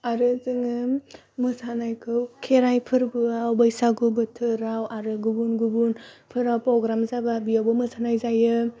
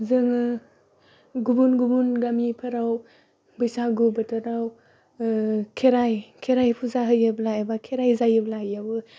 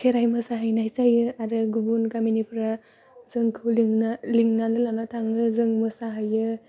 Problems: constant background noise